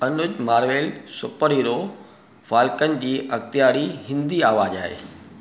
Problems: none marked